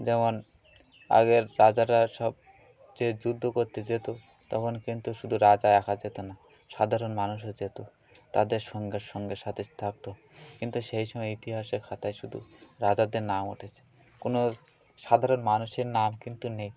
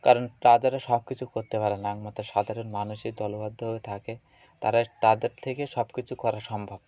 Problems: none marked